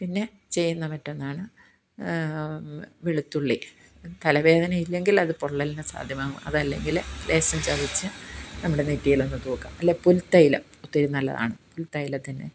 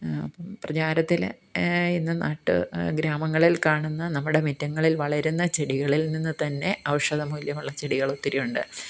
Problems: background sounds at intervals